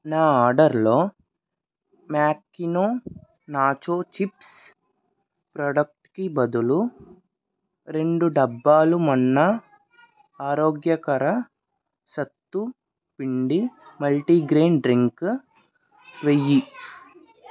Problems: background conversations at intervals